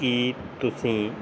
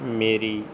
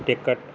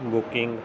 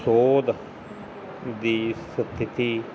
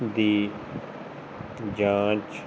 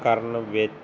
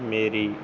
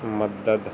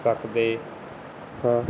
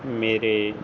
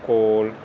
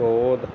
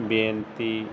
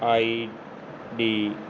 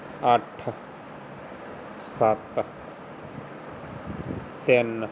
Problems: constant background noise